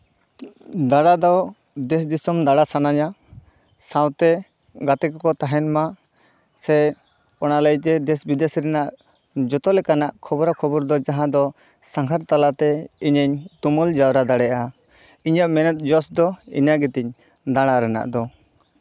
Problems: background sounds at intervals